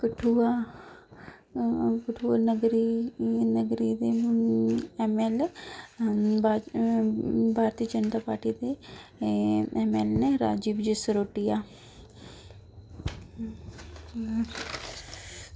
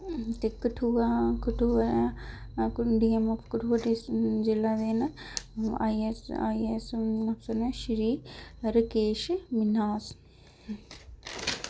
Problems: low volume